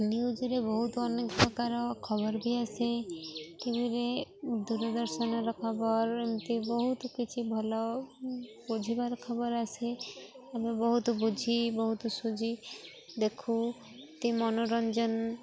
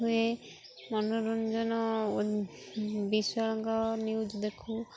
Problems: constant background noise, continuous background conversations